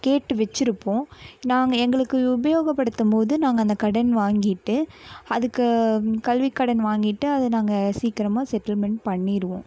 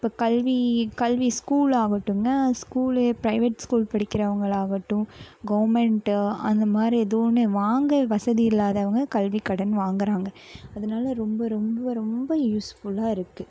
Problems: none marked